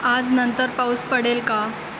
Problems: constant background noise